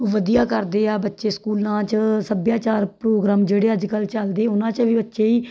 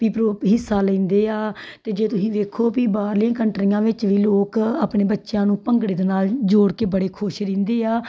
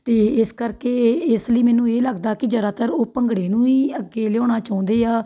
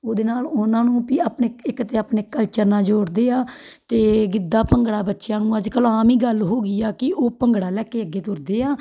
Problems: background sounds at intervals